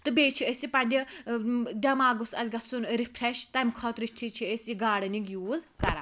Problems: none marked